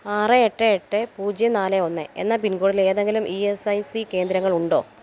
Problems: none marked